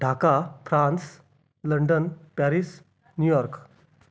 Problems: background sounds at intervals, background conversations at intervals